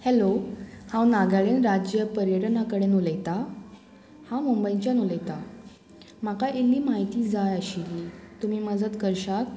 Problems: constant background noise